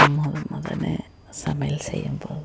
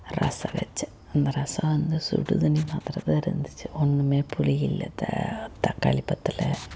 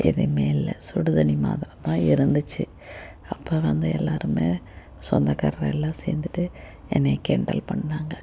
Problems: constant background noise, low volume